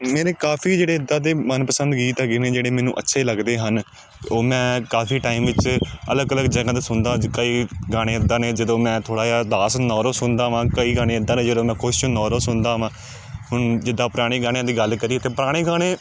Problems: none marked